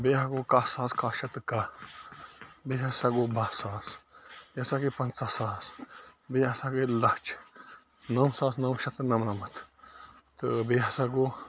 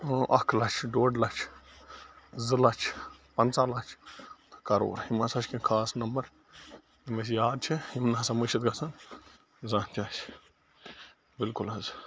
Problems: constant background noise